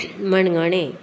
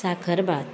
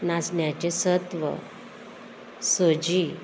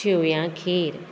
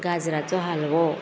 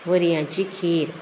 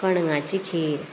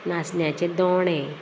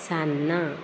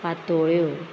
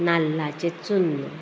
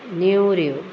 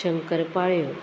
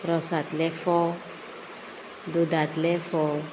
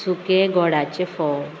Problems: constant background noise